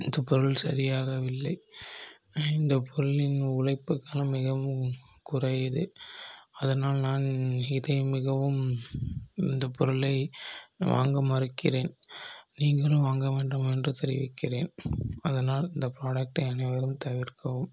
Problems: low volume